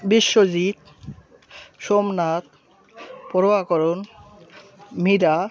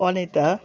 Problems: none marked